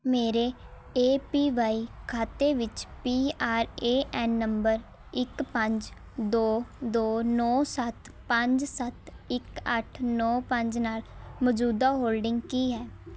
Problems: none marked